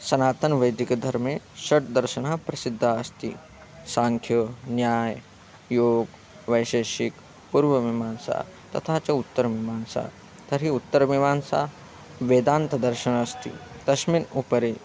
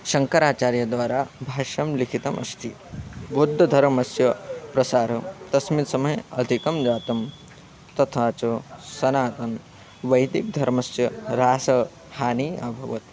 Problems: constant background noise